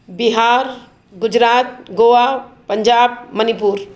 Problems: background sounds at intervals